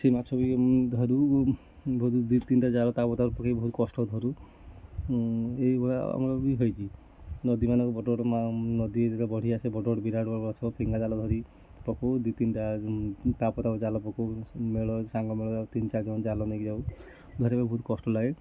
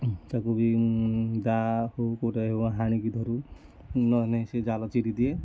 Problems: constant background noise, continuous background conversations